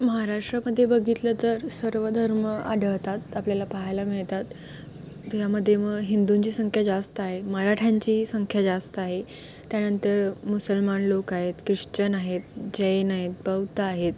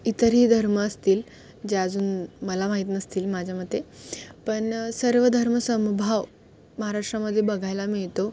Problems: constant background noise, background conversations at intervals